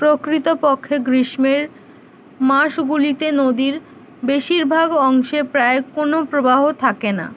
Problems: none marked